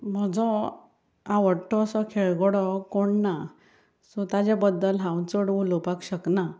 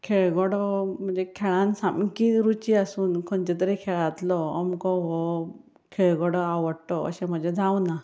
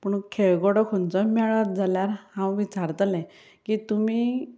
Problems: background sounds at intervals